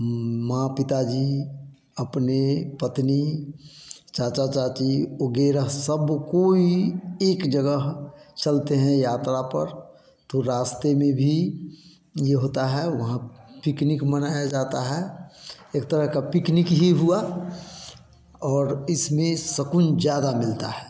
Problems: constant background noise